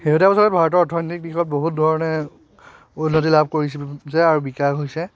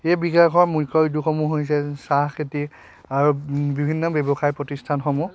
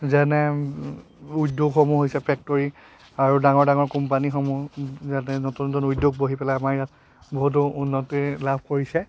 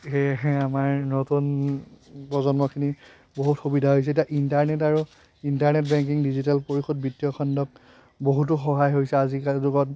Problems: constant background noise, continuous background conversations